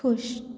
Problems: constant background noise